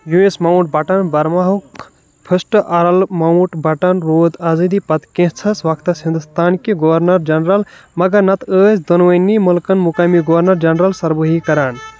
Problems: background sounds at intervals